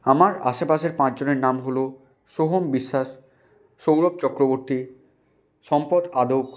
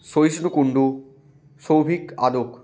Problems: constant background noise